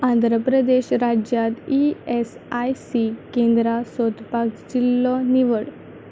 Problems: none marked